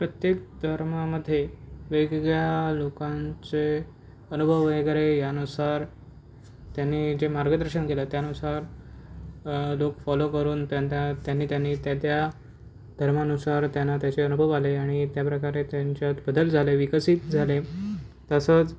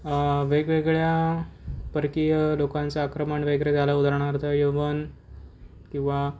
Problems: none marked